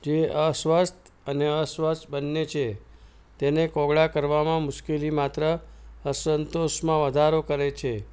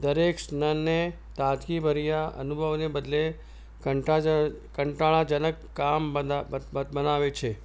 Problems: none marked